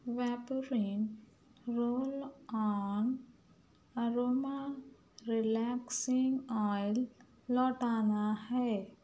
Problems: none marked